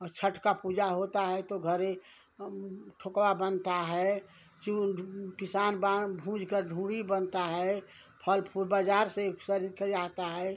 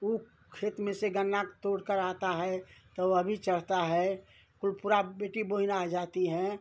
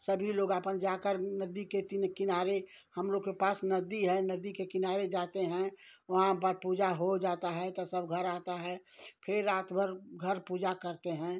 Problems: none marked